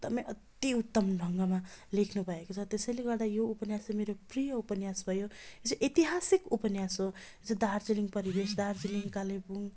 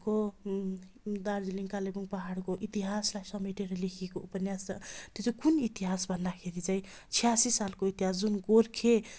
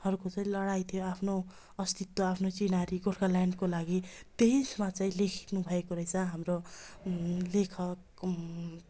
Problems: constant background noise